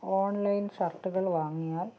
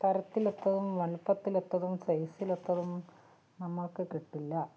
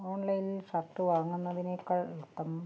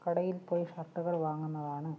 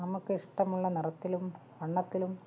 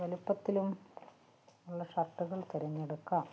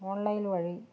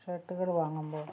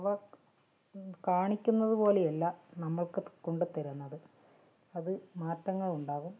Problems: low volume